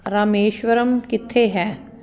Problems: constant background noise